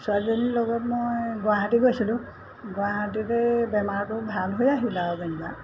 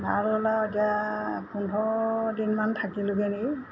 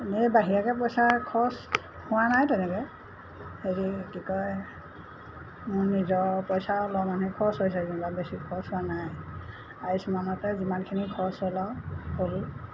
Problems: constant background noise